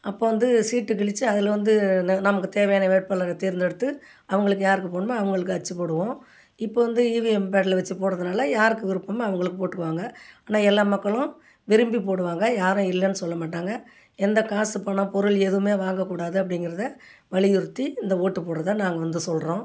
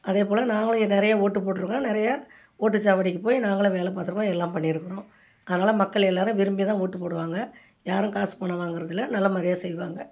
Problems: none marked